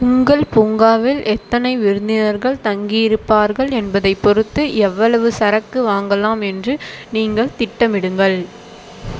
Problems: constant background noise